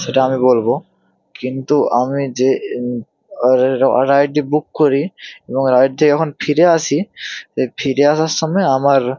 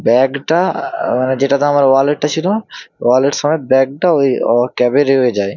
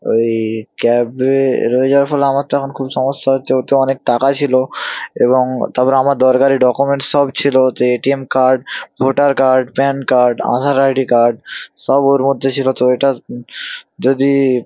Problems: none marked